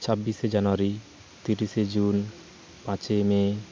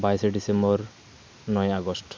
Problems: constant background noise, continuous background conversations